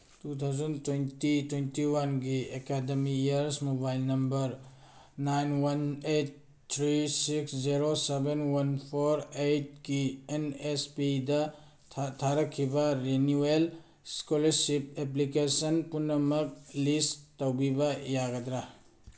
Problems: none marked